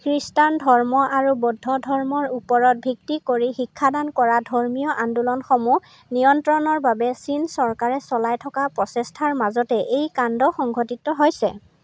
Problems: constant background noise